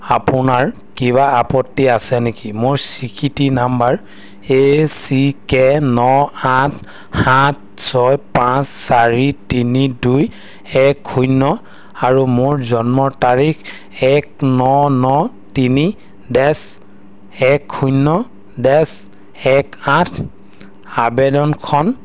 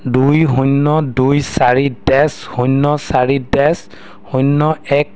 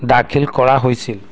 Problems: none marked